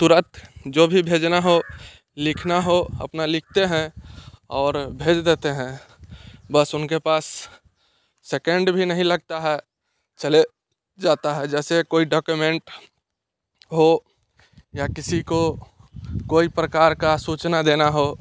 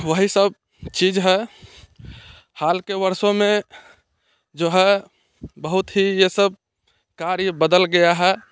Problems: constant background noise